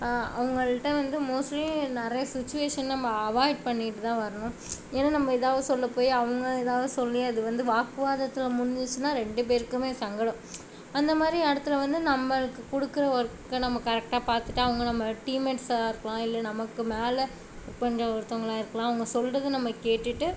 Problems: none marked